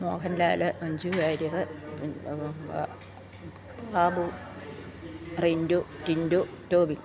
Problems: none marked